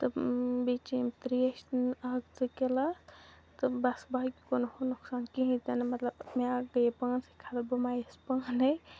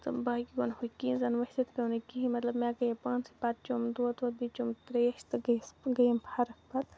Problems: low volume